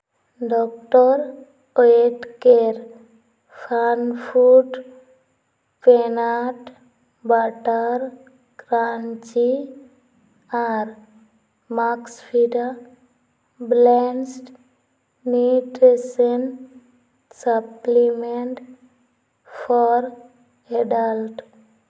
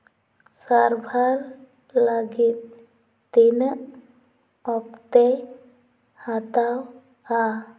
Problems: background sounds at intervals, echo